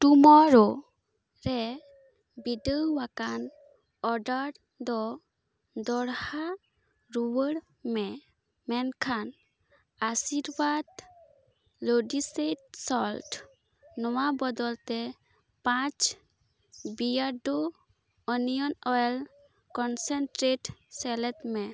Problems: none marked